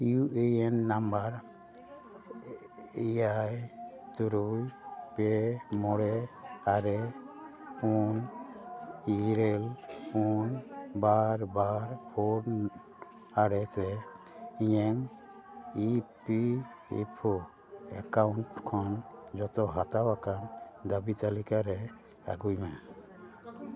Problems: none marked